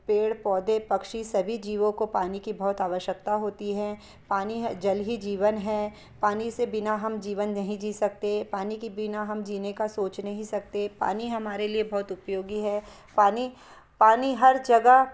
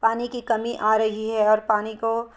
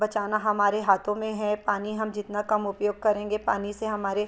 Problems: background sounds at intervals